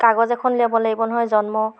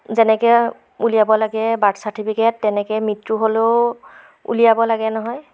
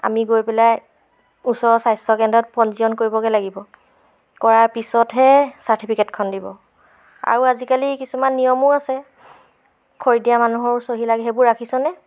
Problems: background sounds at intervals